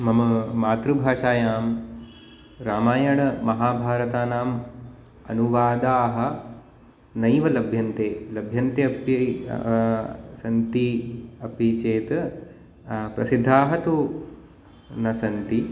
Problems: constant background noise